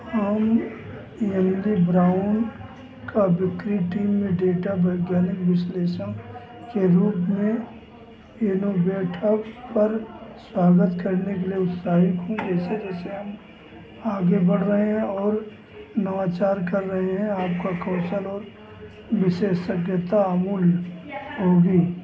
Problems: constant background noise